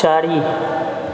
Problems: constant background noise